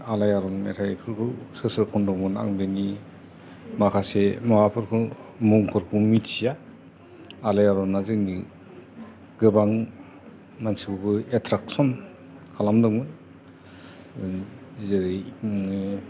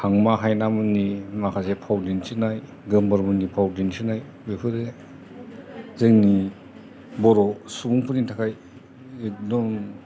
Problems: constant background noise, background conversations at intervals